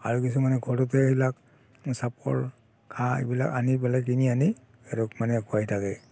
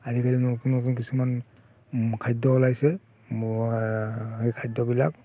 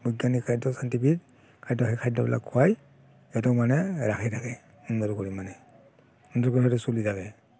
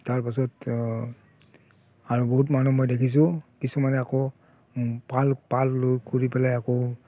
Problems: constant background noise